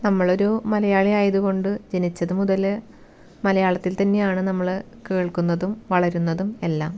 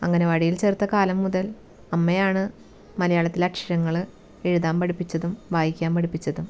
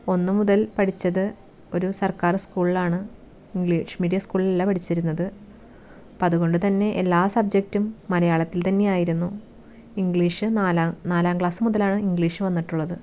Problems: none marked